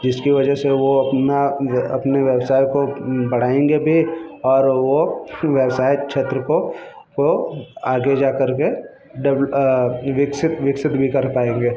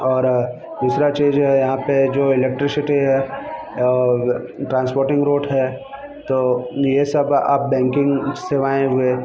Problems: background sounds at intervals